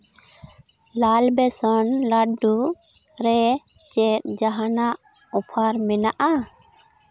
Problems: none marked